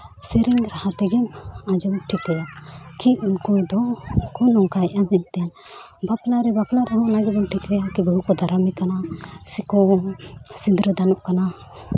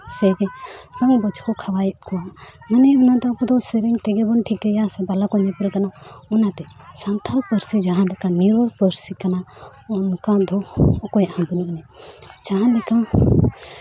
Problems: background sounds at intervals, background conversations at intervals